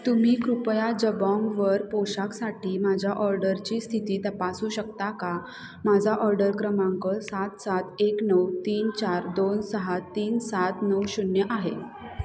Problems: constant background noise, continuous background conversations